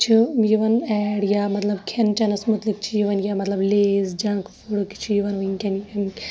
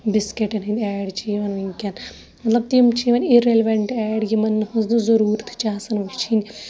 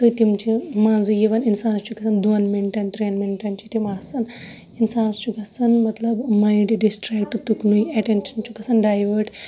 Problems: background sounds at intervals, background conversations at intervals